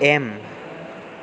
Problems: none marked